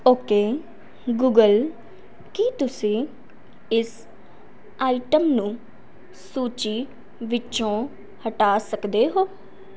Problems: background sounds at intervals